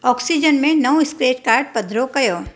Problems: none marked